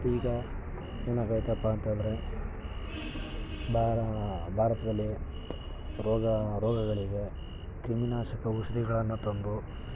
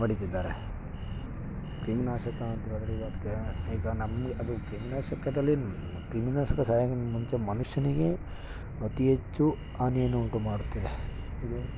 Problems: background sounds at intervals